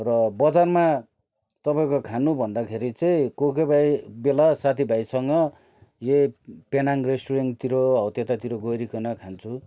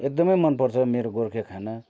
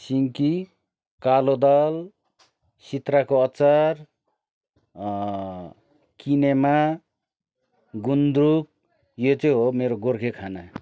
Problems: none marked